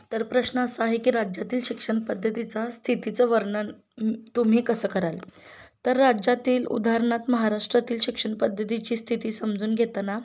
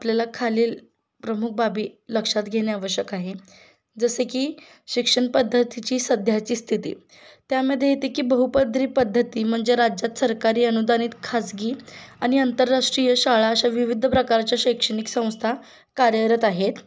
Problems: constant background noise